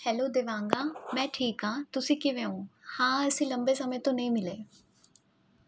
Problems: none marked